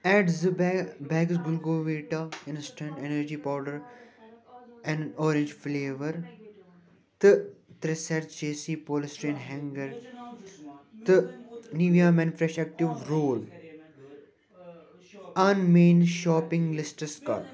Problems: background sounds at intervals